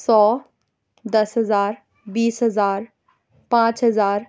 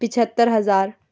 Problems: none marked